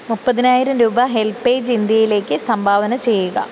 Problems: none marked